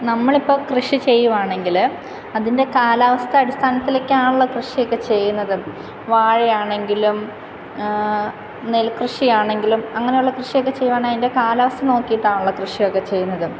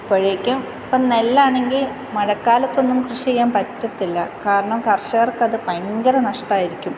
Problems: constant background noise